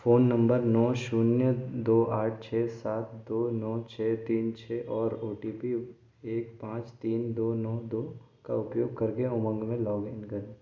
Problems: low volume